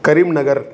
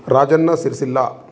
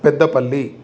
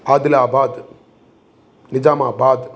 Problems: constant background noise